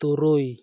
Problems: none marked